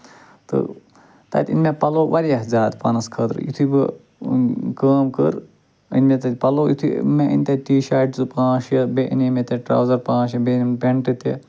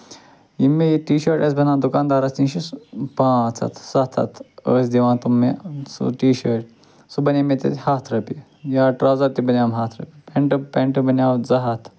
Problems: constant background noise